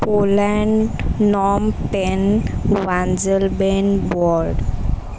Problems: constant background noise, continuous background conversations